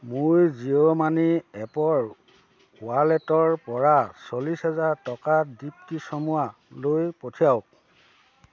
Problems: constant background noise, background conversations at intervals